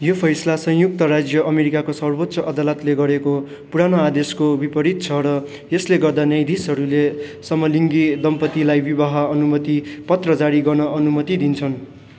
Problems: none marked